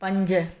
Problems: none marked